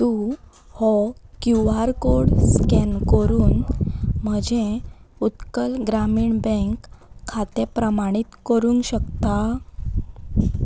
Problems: none marked